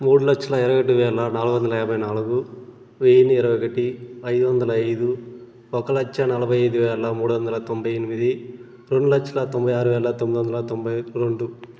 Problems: constant background noise